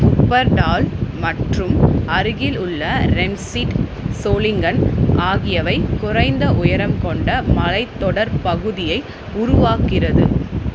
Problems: constant background noise